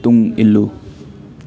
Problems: background conversations at intervals